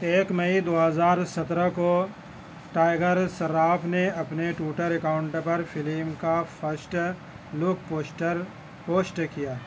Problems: constant background noise